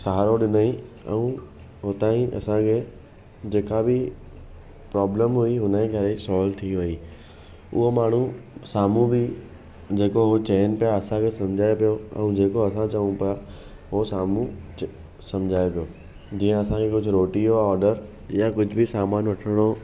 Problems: none marked